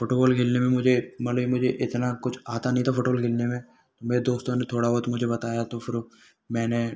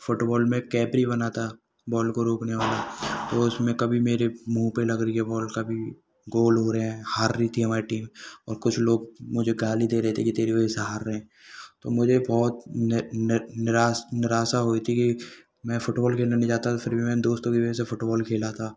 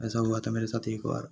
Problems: background sounds at intervals